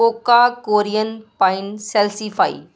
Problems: none marked